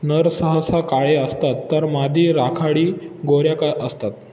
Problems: constant background noise